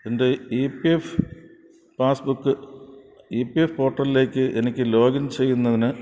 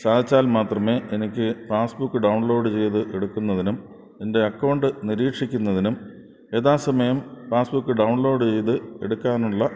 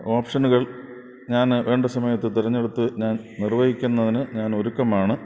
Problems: background sounds at intervals